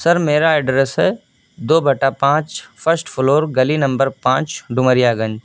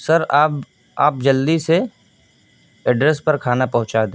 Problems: background sounds at intervals, low volume